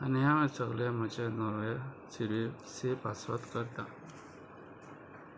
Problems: constant background noise